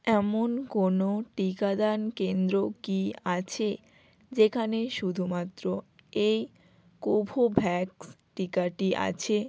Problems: none marked